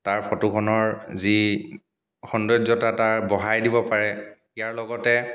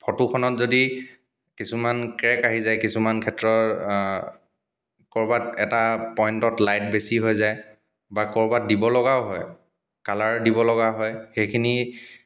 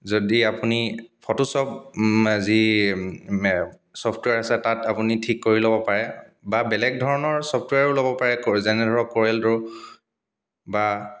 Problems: background sounds at intervals, background conversations at intervals